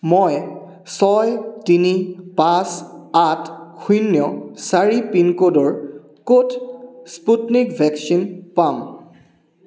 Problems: none marked